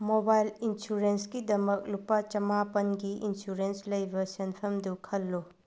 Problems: low volume